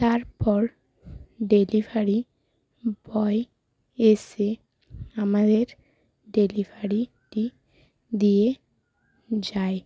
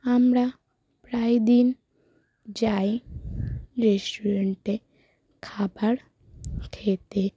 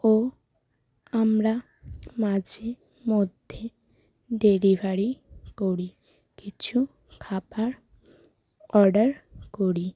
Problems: none marked